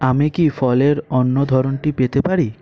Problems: constant background noise